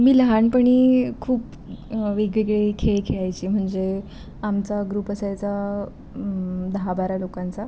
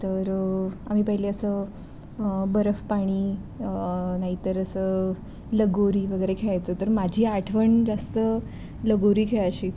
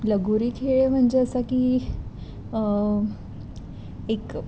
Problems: constant background noise